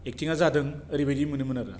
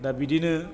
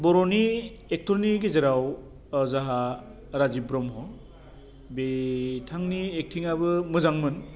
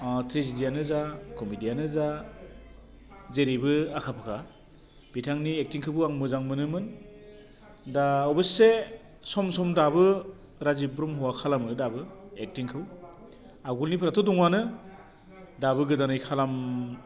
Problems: none marked